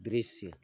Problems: constant background noise, low volume